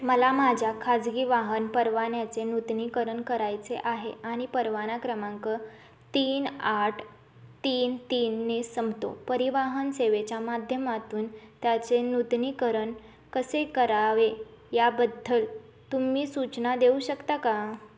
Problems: none marked